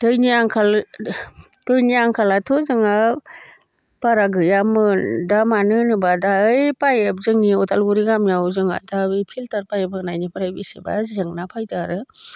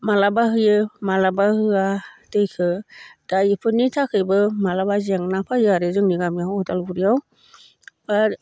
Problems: constant background noise